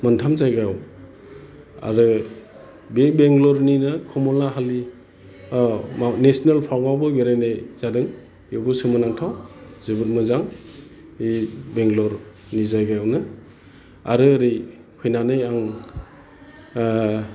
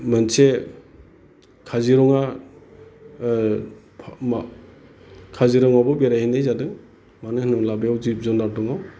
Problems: constant background noise